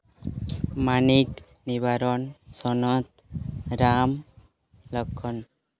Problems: background sounds at intervals